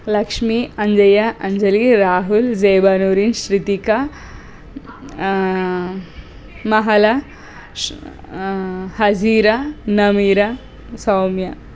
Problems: constant background noise